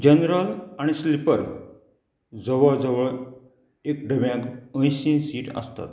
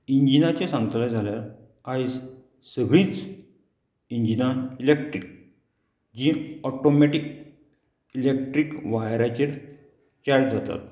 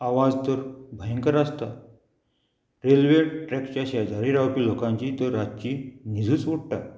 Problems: none marked